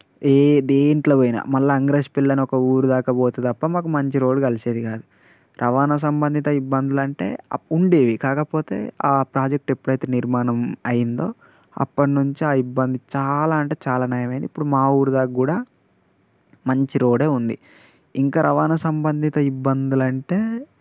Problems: constant background noise